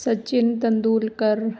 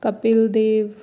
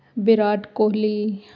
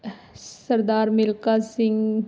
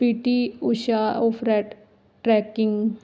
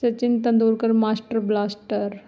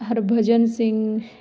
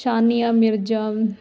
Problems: none marked